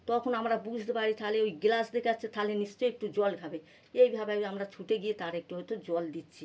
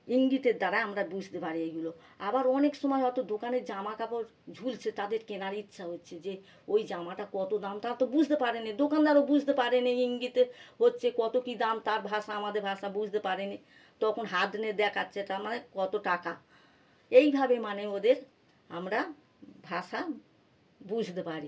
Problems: none marked